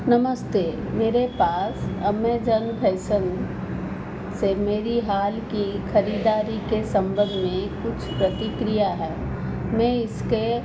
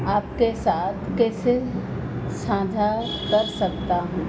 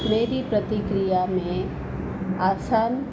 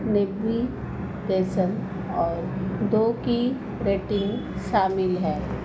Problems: none marked